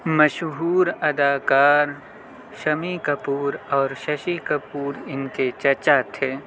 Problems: constant background noise, continuous background conversations